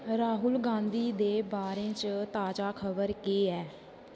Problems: constant background noise